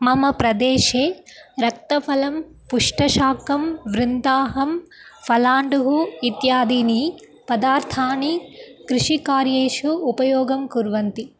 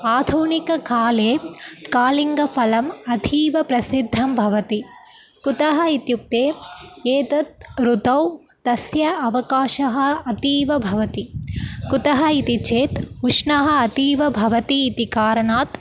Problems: background sounds at intervals